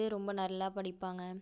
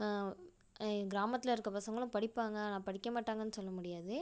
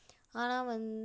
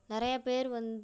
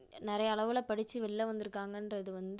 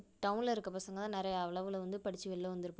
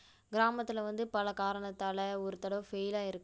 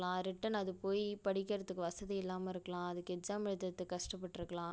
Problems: none marked